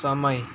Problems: constant background noise